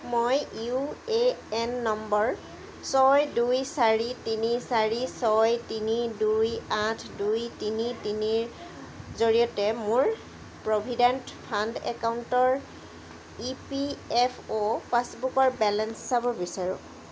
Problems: background sounds at intervals